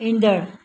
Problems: none marked